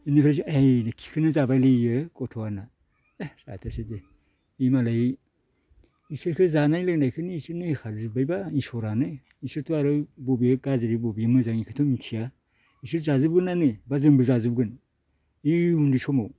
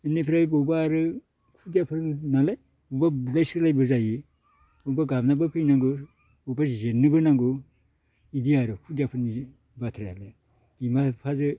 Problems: low volume